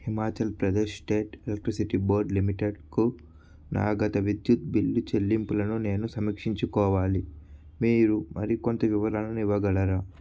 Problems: constant background noise